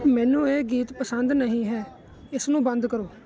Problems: constant background noise